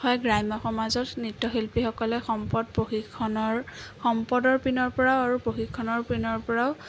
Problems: constant background noise